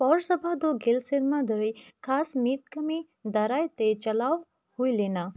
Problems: none marked